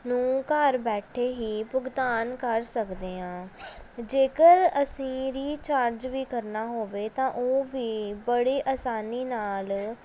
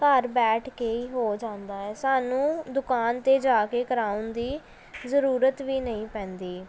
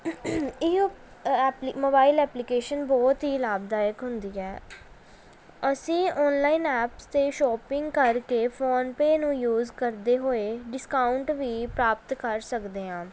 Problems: background sounds at intervals